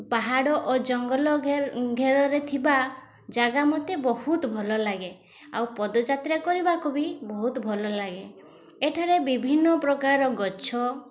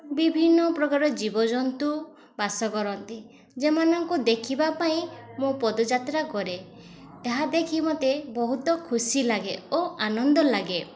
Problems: constant background noise, continuous background conversations